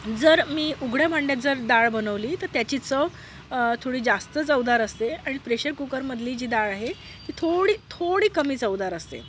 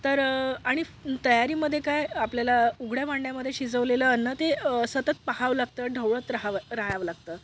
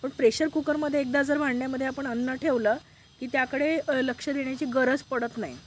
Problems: background sounds at intervals